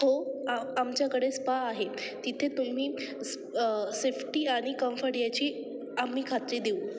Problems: none marked